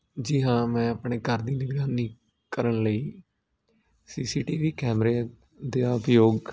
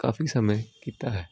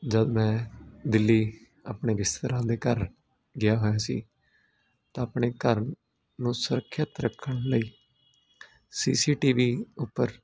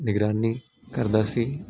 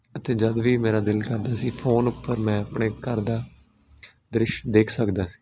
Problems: none marked